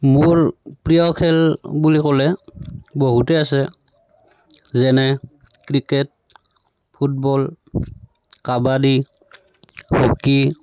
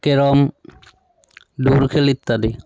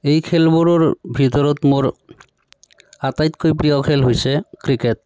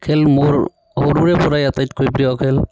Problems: none marked